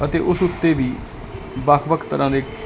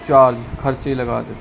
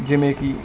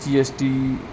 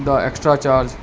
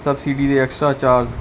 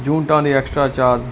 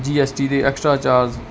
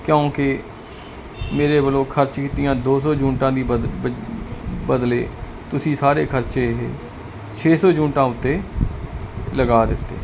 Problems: background sounds at intervals